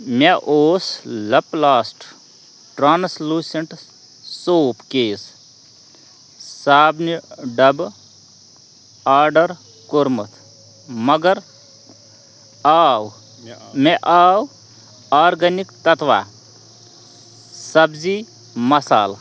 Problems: constant background noise, background conversations at intervals